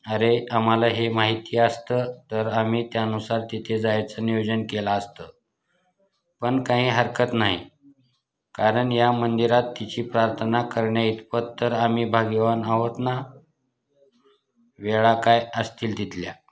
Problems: constant background noise